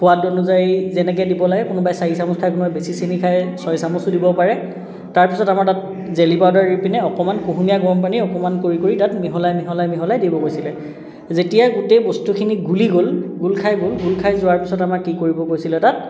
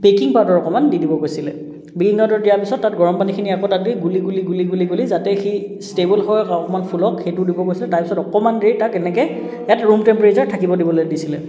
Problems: continuous background conversations